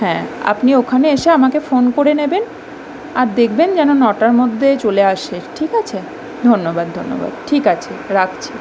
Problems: background sounds at intervals